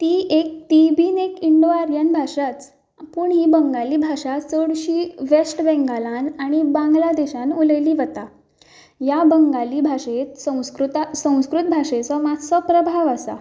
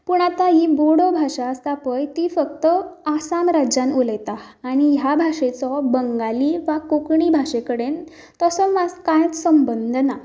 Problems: none marked